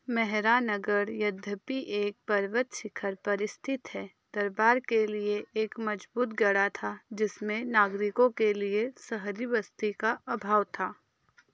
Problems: background sounds at intervals